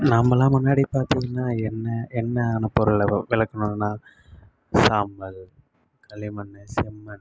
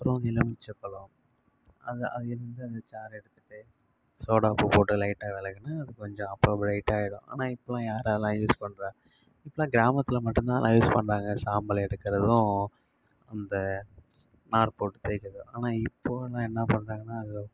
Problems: constant background noise